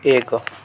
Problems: continuous background conversations